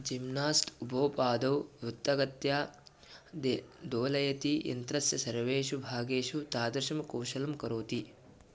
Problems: none marked